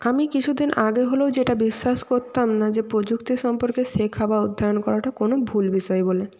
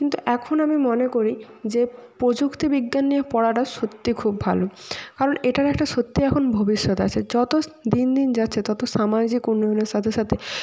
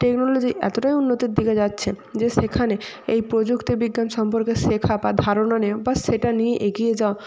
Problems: constant background noise